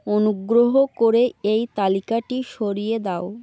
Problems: constant background noise